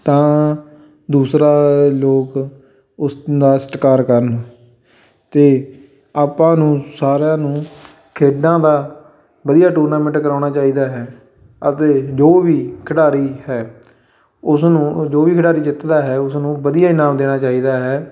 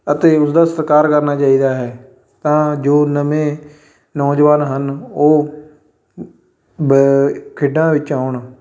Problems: background sounds at intervals, background conversations at intervals